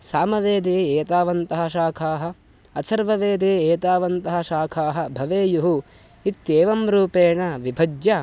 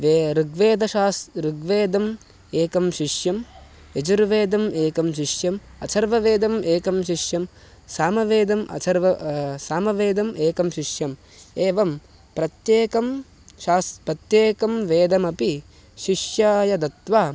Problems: constant background noise